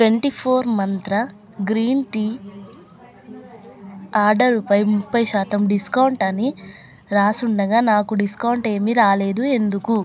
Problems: background conversations at intervals